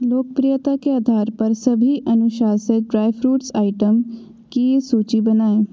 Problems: echo